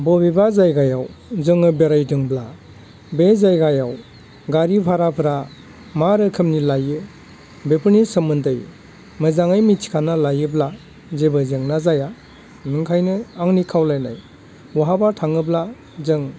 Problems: constant background noise